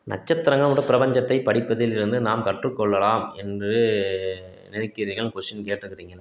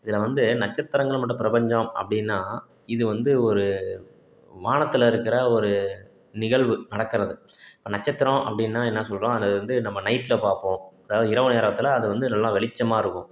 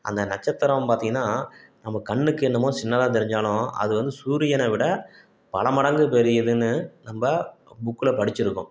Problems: none marked